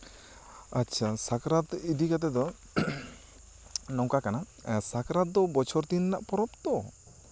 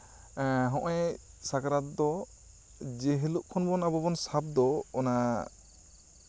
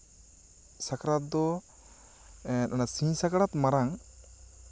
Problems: none marked